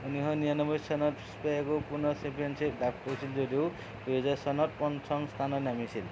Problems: constant background noise